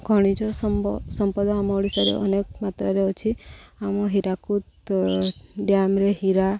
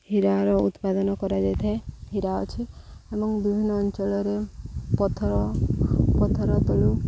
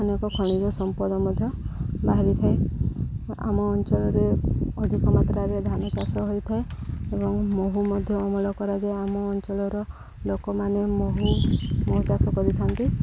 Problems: constant background noise, background conversations at intervals, low volume